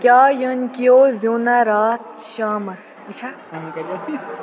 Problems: constant background noise, continuous background conversations